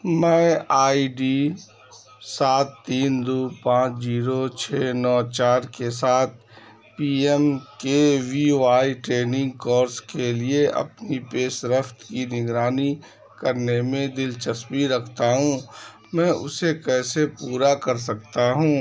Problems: background sounds at intervals, background conversations at intervals